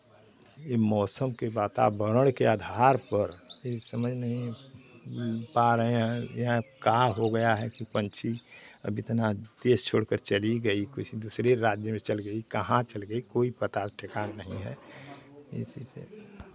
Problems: constant background noise, continuous background conversations